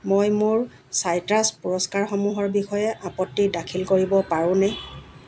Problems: constant background noise